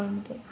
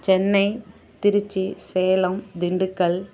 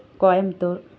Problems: background sounds at intervals, background conversations at intervals